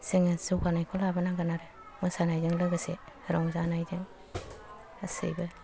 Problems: low volume